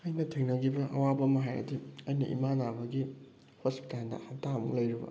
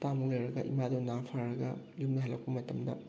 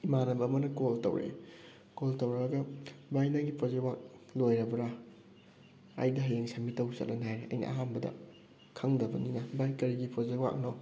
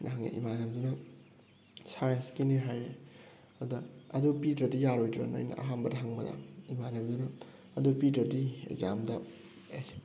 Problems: background sounds at intervals